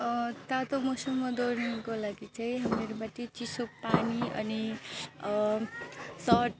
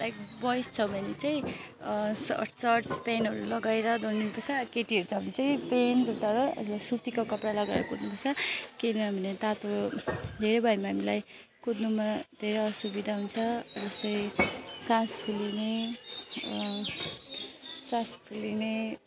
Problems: none marked